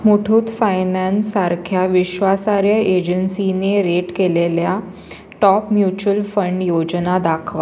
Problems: constant background noise